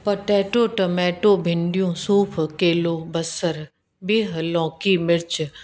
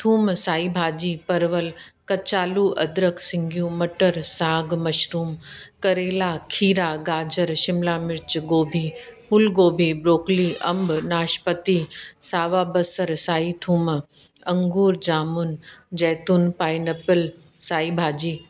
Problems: constant background noise